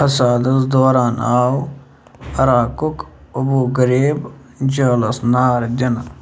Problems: none marked